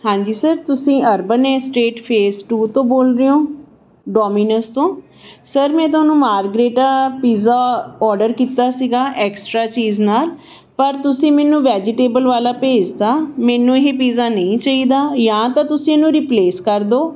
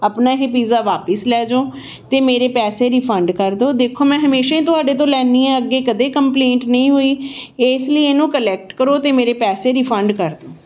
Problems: constant background noise